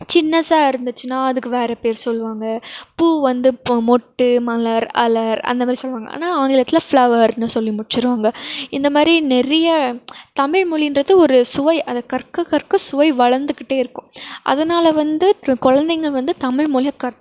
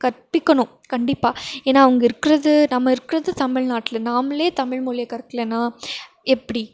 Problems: none marked